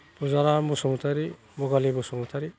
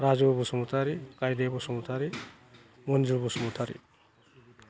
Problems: none marked